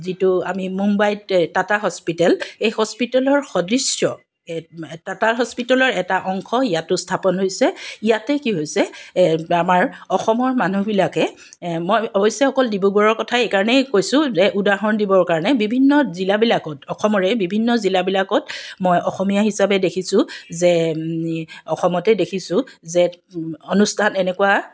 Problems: background sounds at intervals